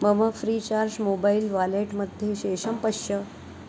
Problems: constant background noise